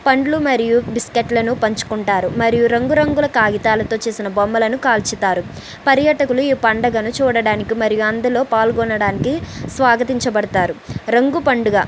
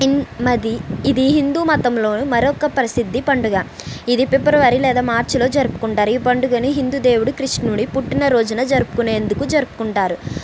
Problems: constant background noise